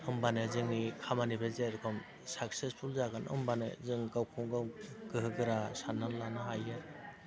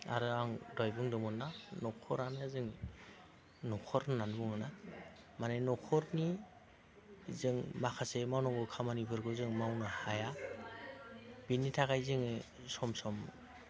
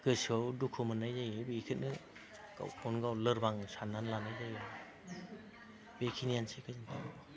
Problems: low volume